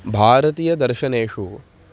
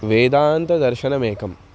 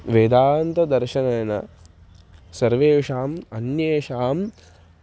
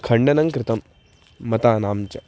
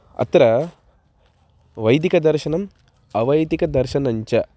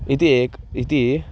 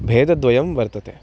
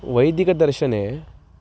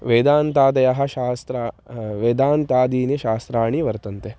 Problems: constant background noise